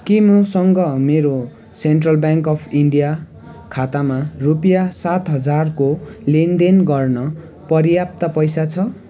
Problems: continuous background conversations